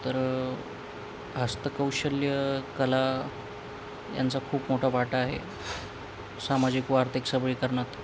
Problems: constant background noise